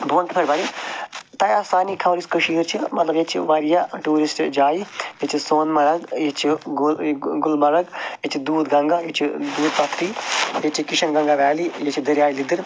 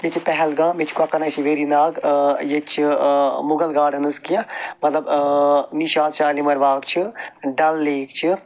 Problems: none marked